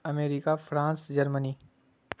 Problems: constant background noise